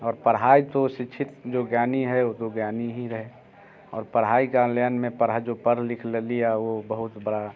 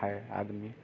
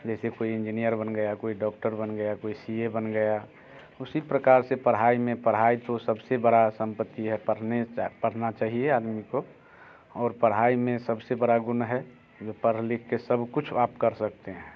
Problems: constant background noise